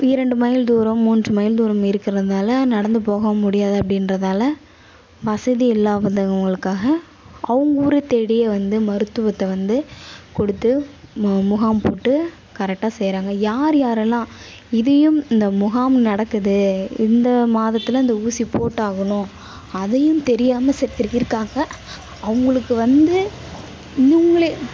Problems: constant background noise, background conversations at intervals